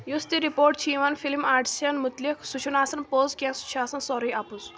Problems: background sounds at intervals